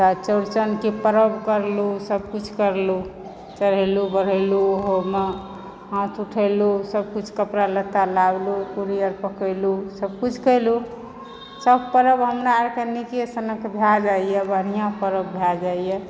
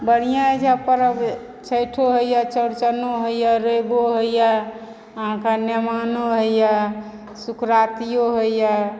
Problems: background sounds at intervals, background conversations at intervals